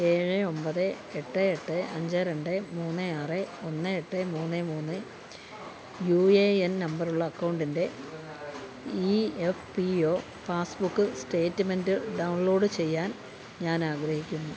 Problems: none marked